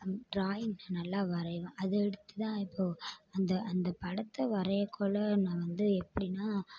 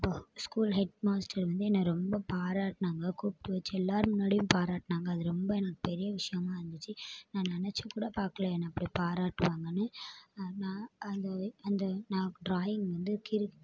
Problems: low volume